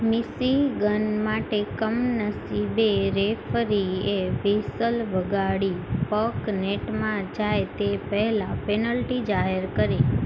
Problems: constant background noise